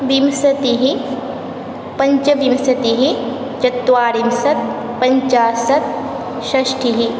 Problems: constant background noise